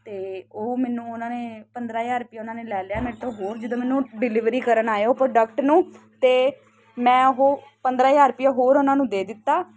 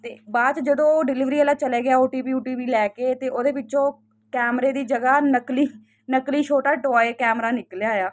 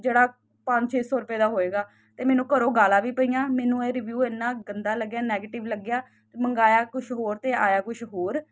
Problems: constant background noise